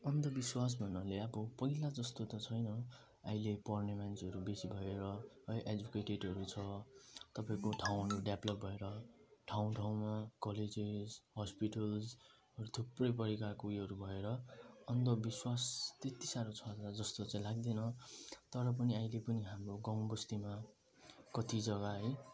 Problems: low volume